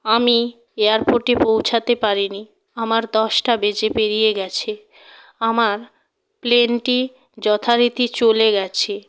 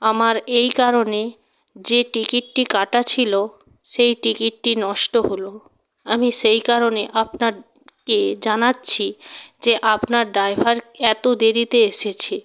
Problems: constant background noise